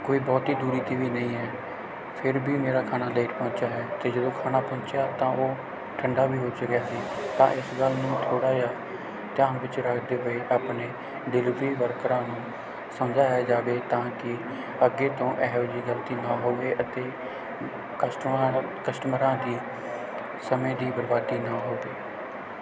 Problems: constant background noise